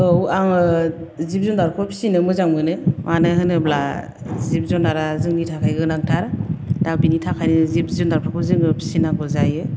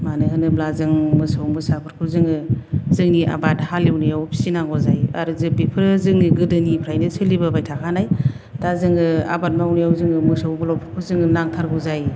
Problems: none marked